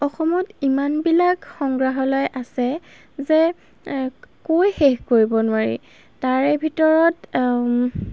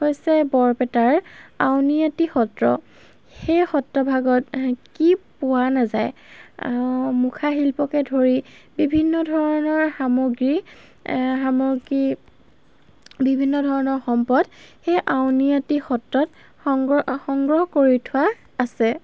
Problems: background sounds at intervals